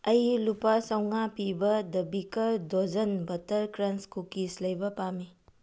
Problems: low volume